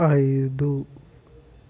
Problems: none marked